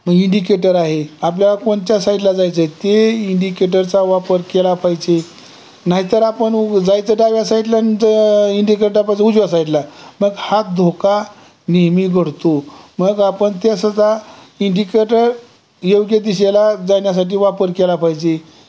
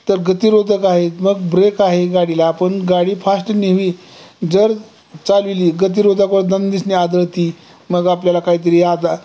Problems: constant background noise, background conversations at intervals